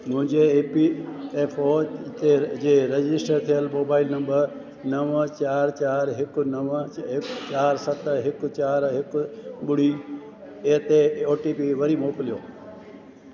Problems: constant background noise, echo